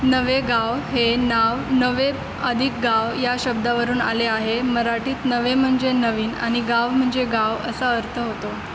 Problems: constant background noise